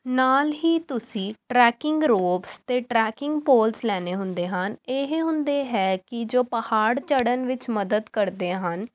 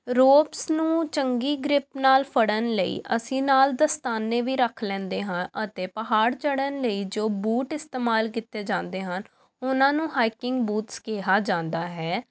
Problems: background sounds at intervals